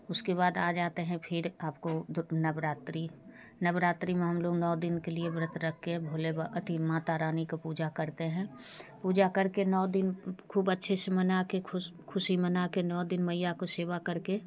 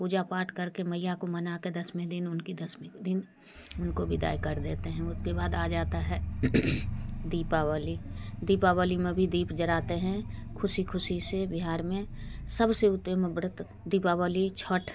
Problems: constant background noise, background conversations at intervals